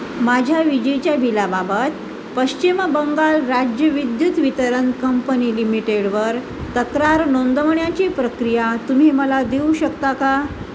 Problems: constant background noise